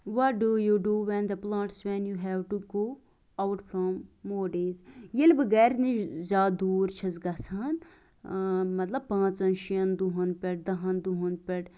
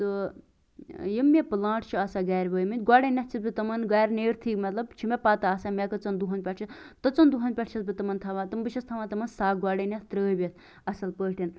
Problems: none marked